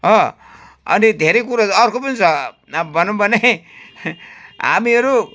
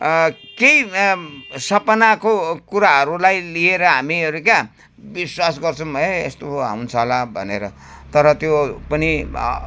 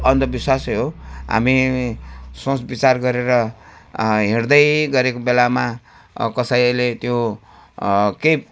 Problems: background sounds at intervals